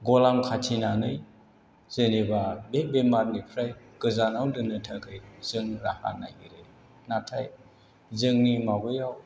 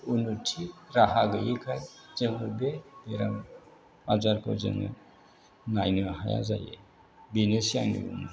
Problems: none marked